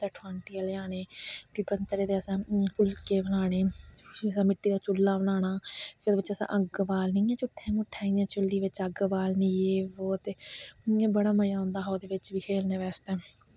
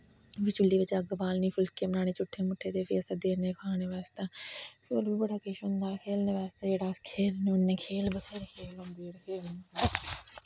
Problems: constant background noise